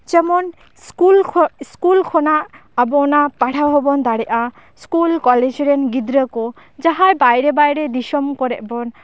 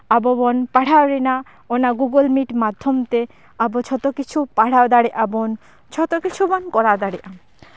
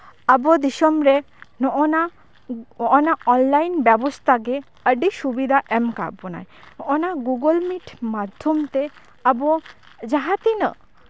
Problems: background sounds at intervals